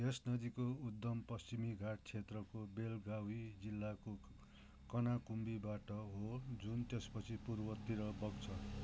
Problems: constant background noise